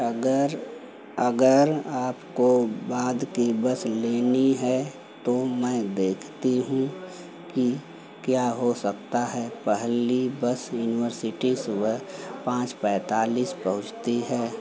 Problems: none marked